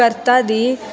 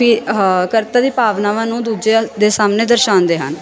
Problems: constant background noise